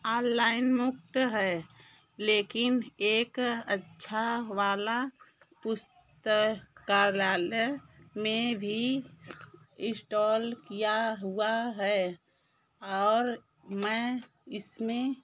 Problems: background sounds at intervals